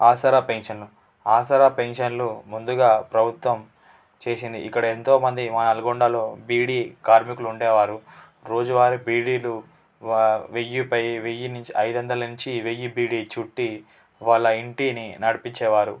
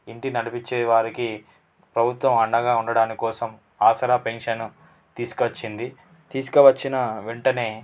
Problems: constant background noise